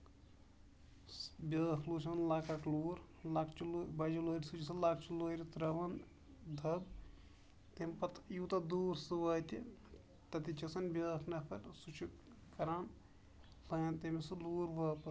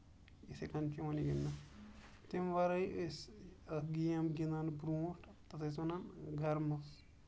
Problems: background sounds at intervals